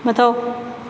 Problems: none marked